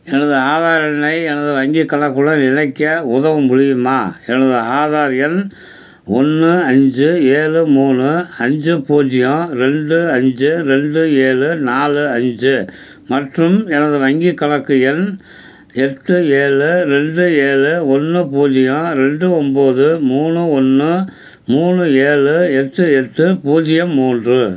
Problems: constant background noise